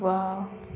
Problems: constant background noise